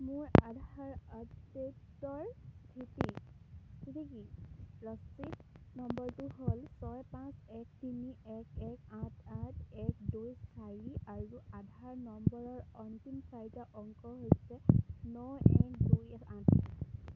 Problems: none marked